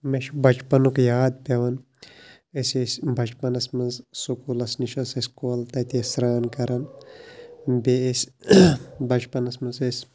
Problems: none marked